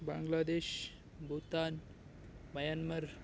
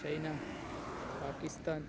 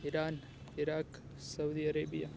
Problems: background sounds at intervals